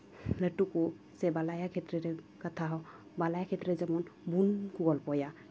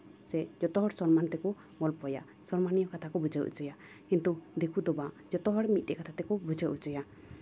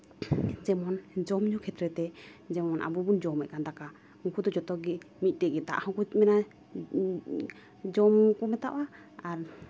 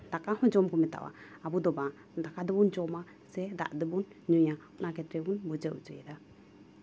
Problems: none marked